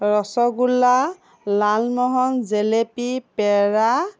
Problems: none marked